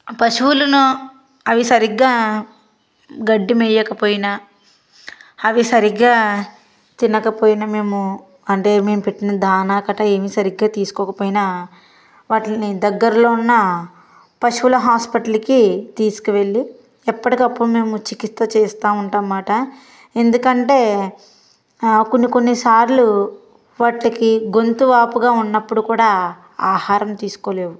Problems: constant background noise